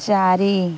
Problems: none marked